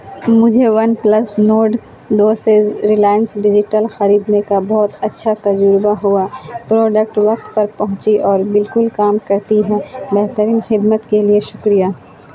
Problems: constant background noise